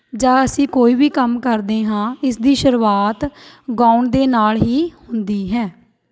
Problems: background sounds at intervals